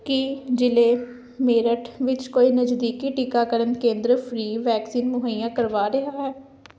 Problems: none marked